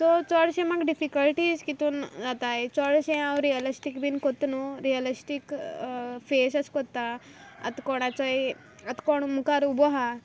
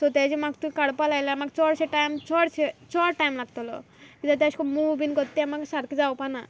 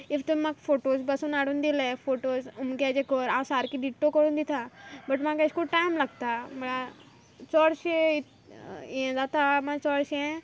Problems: constant background noise